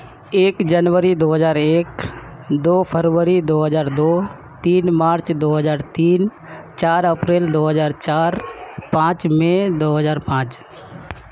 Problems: constant background noise